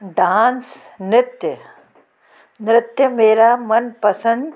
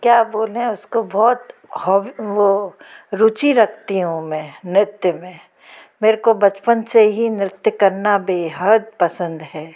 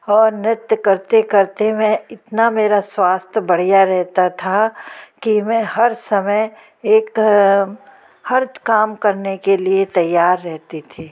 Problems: none marked